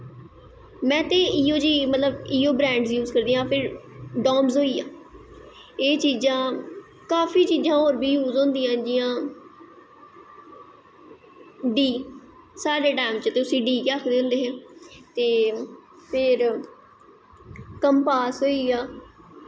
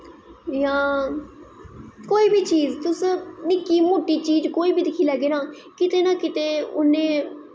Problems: echo